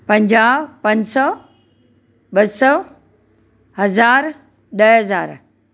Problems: none marked